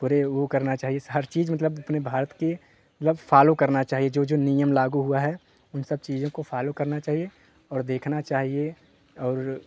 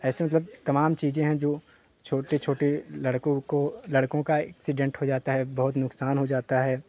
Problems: constant background noise